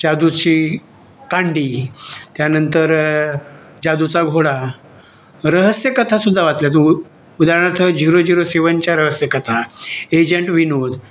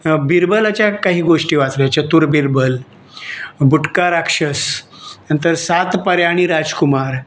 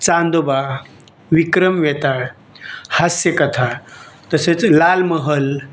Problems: none marked